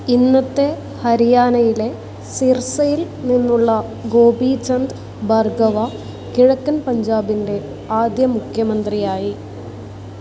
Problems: constant background noise